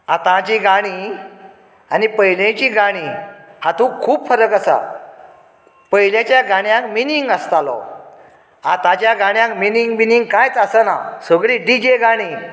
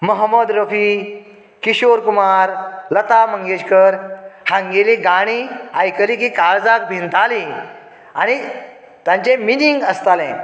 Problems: background sounds at intervals, echo